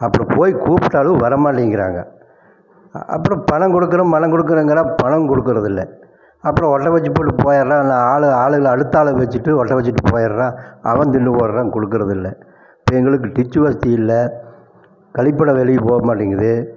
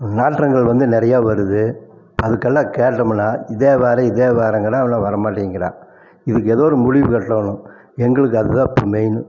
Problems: constant background noise